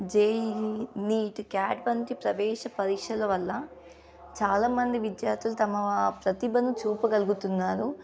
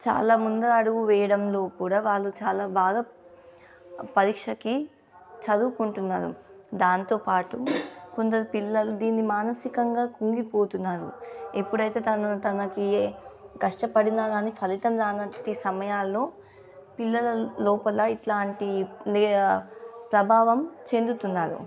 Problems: background sounds at intervals